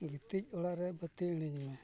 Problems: background sounds at intervals, low volume